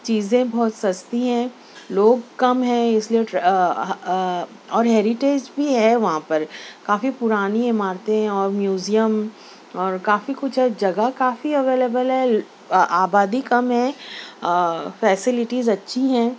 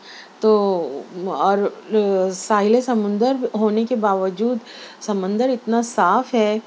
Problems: none marked